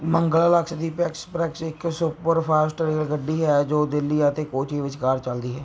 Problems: background sounds at intervals